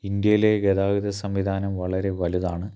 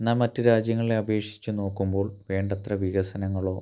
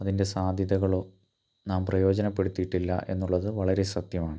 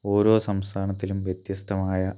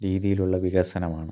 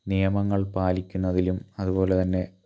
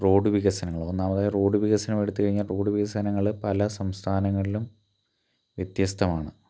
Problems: none marked